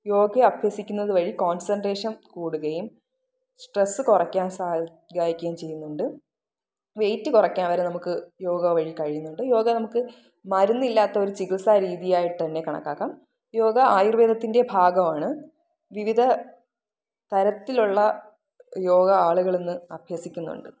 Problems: none marked